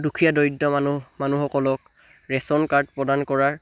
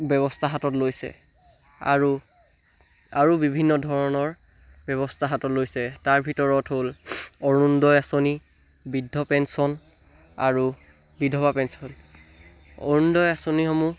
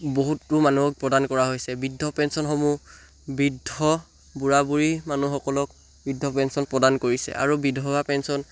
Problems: none marked